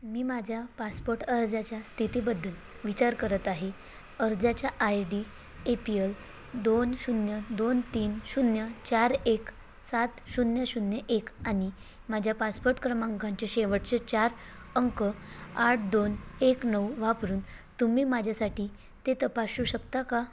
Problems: constant background noise